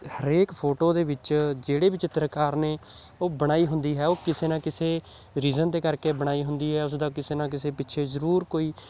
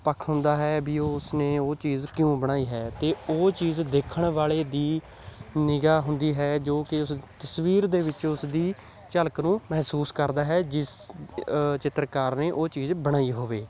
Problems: none marked